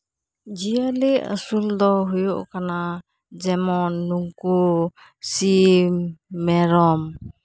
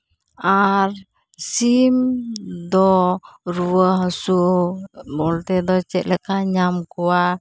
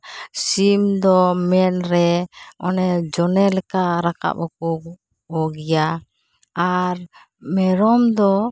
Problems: none marked